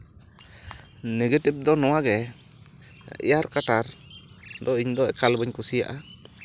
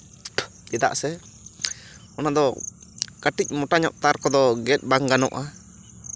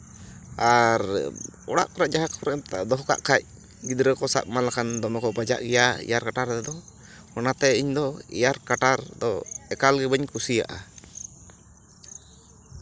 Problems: constant background noise